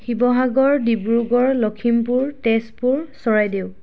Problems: none marked